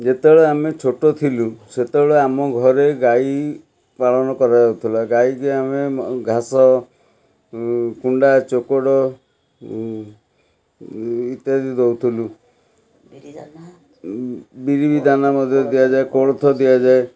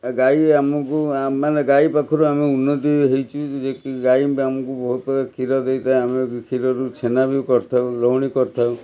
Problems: background sounds at intervals, background conversations at intervals